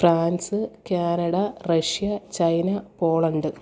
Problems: none marked